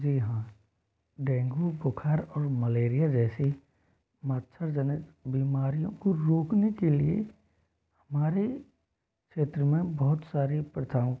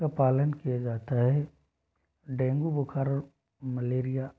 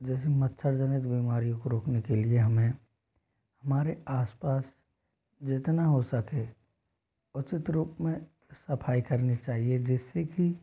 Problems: none marked